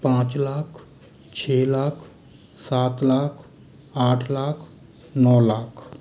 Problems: constant background noise